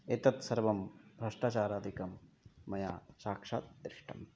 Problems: low volume